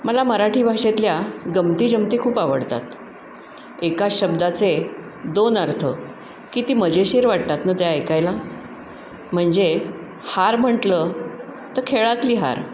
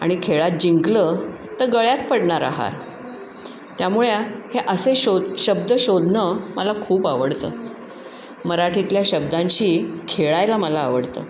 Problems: none marked